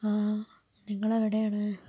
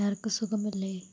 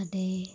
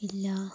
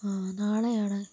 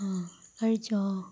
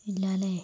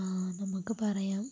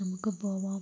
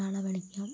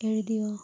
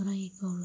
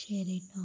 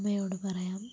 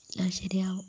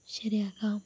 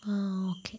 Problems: constant background noise, low volume